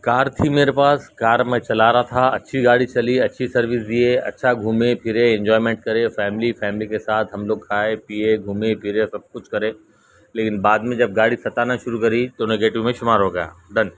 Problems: background sounds at intervals